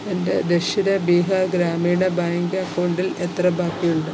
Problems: constant background noise